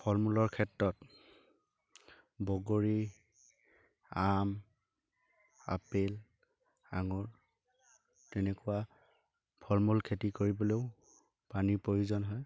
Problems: constant background noise, background conversations at intervals